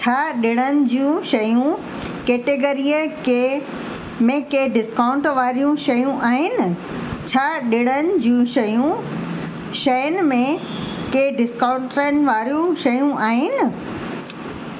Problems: constant background noise, echo